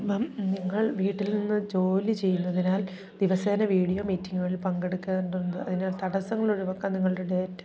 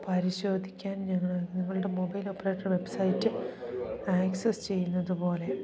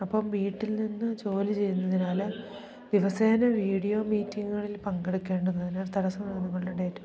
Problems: continuous background conversations, low volume